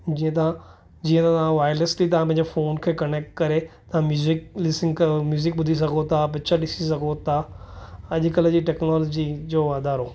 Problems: none marked